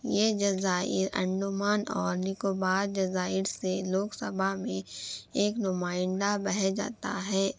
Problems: background sounds at intervals